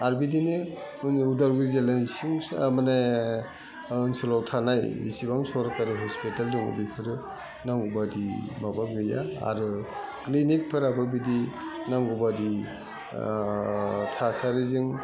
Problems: low volume